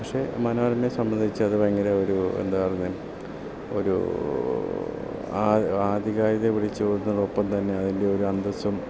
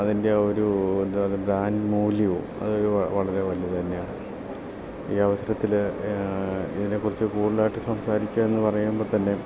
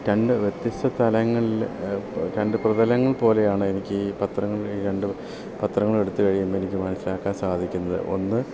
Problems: constant background noise, low volume